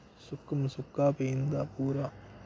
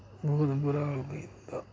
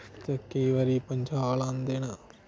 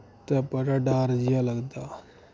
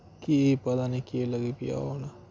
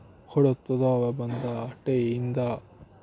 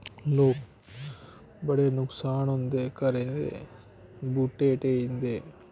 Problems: constant background noise